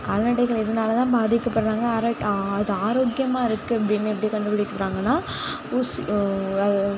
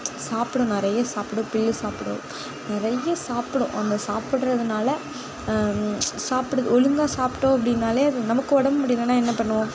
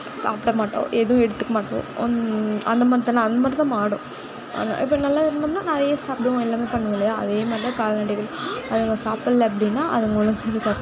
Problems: background sounds at intervals